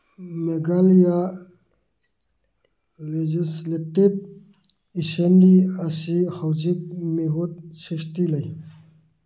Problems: none marked